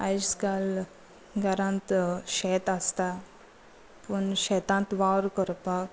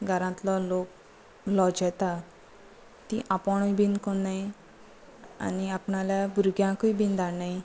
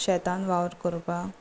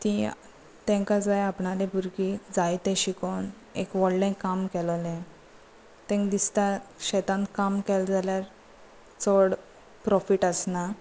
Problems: none marked